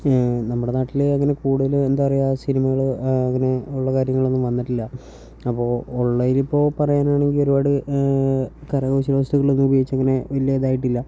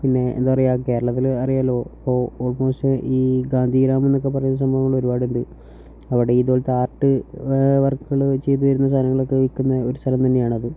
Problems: none marked